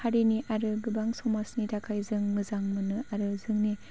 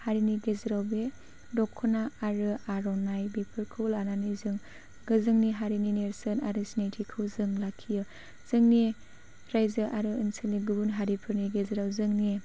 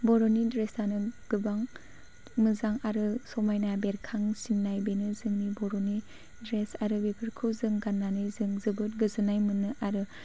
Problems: none marked